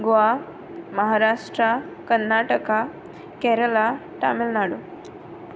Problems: background sounds at intervals